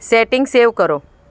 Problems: background sounds at intervals